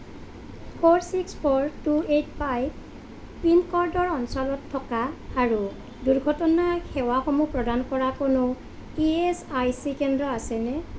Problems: constant background noise